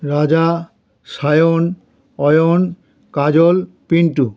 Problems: none marked